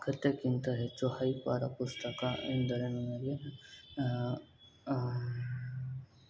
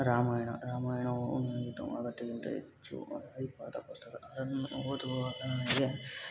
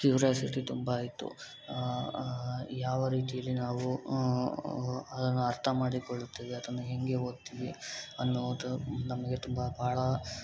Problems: background sounds at intervals